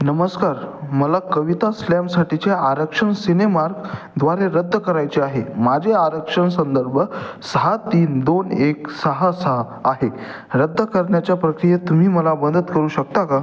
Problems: constant background noise, echo